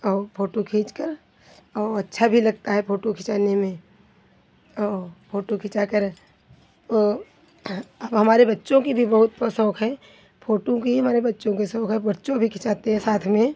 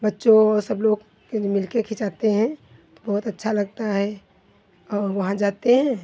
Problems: constant background noise